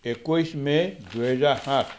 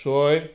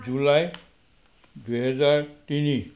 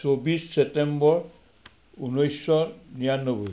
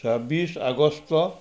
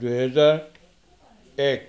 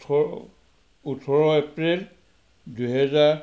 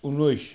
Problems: none marked